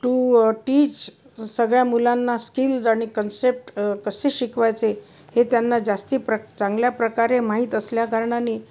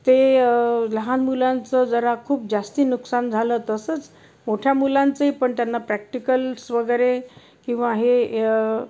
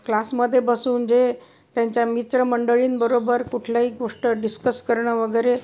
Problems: none marked